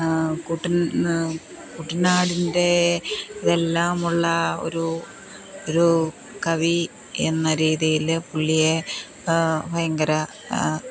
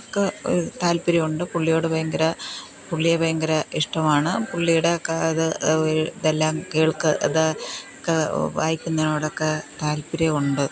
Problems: none marked